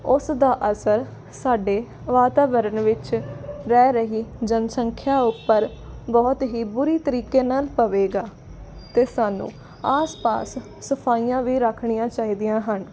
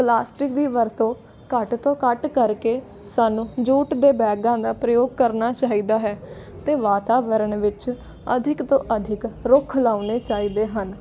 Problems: constant background noise